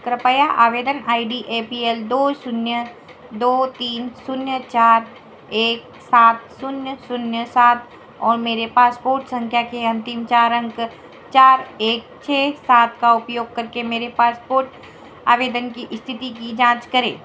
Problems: background sounds at intervals, echo